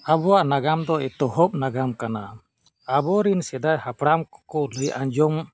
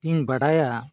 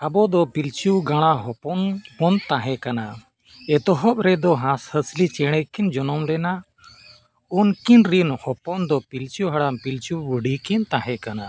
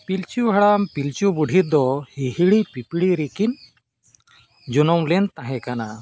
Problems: none marked